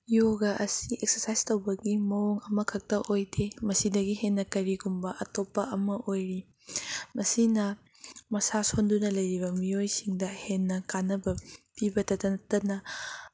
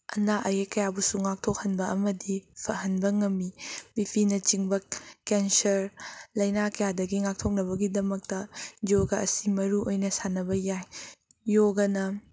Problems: none marked